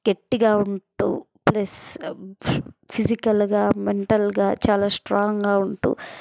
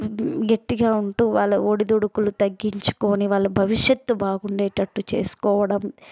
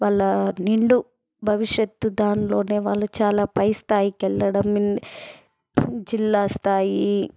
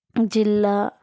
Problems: background sounds at intervals